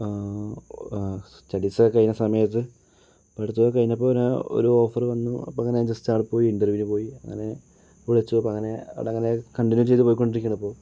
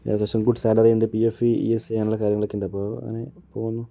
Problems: low volume